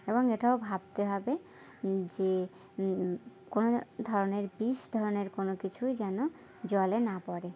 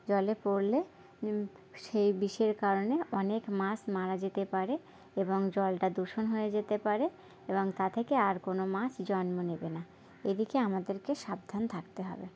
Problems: constant background noise